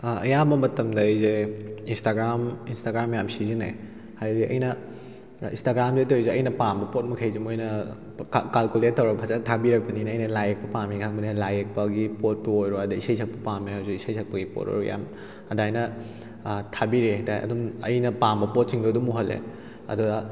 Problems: none marked